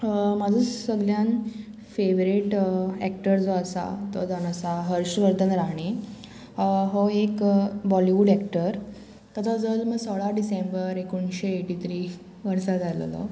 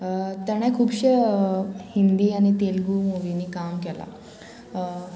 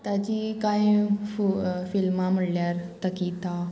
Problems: constant background noise